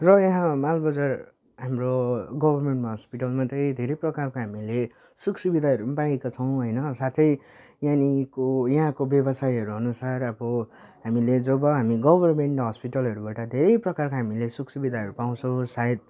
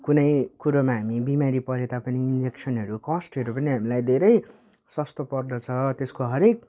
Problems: none marked